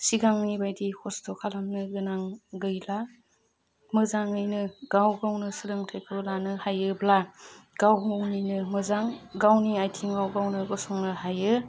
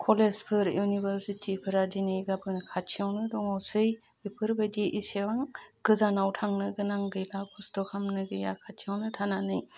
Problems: constant background noise